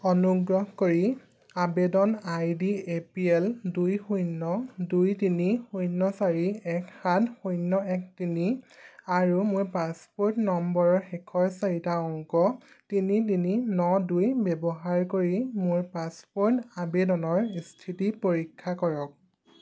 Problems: background sounds at intervals